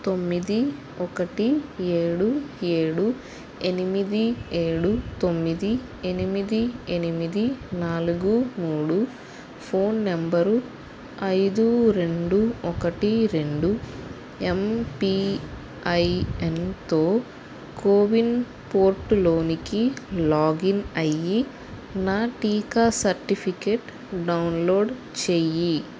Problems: constant background noise